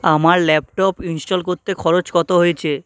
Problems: background conversations at intervals